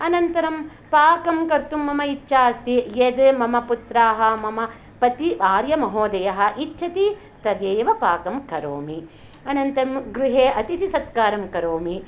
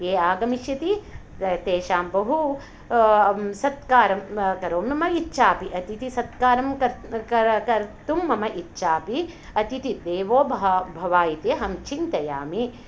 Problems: none marked